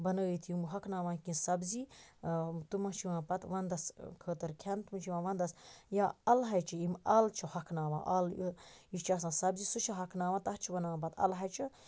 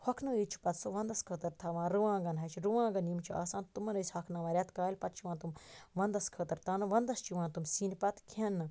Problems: constant background noise